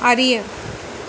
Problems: constant background noise